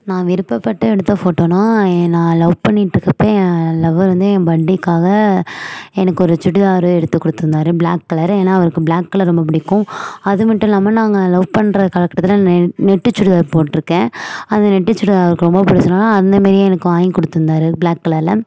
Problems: background sounds at intervals